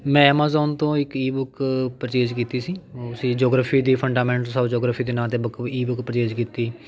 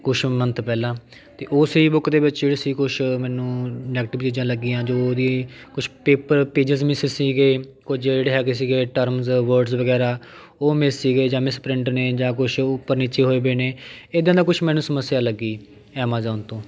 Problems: continuous background conversations